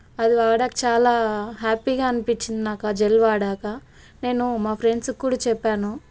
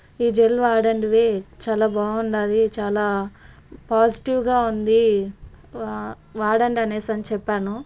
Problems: none marked